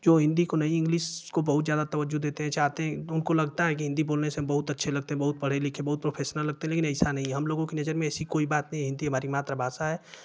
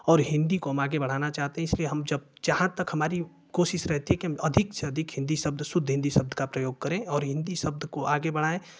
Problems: constant background noise